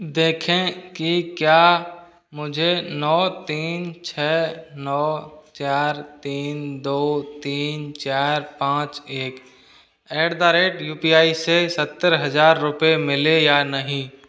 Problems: none marked